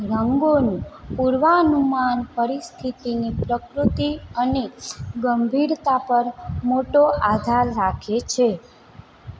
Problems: background sounds at intervals